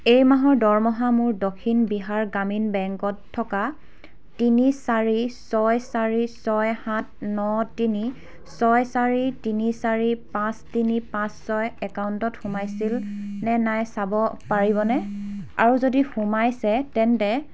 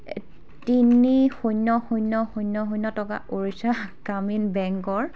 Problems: background sounds at intervals, background conversations at intervals